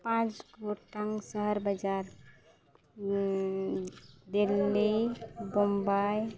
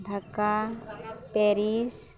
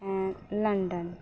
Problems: background sounds at intervals